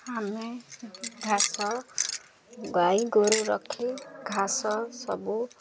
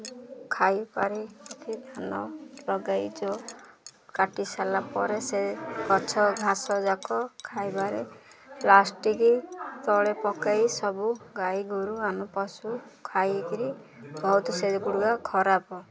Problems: constant background noise, continuous background conversations